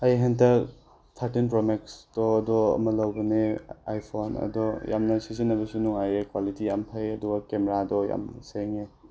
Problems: background sounds at intervals